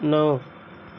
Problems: none marked